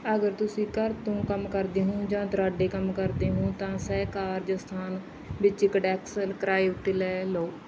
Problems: background sounds at intervals